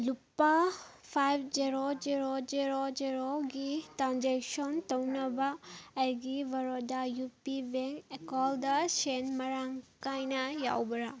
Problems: background conversations at intervals